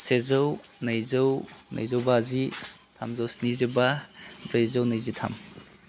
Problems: none marked